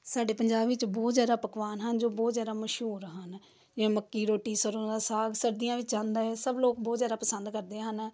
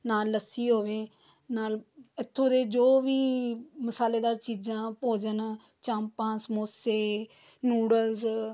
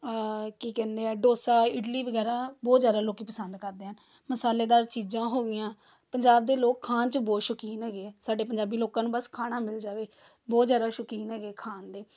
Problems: none marked